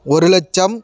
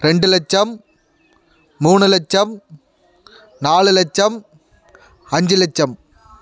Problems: background sounds at intervals